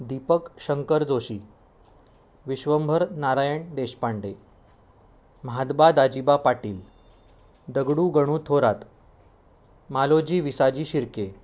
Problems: none marked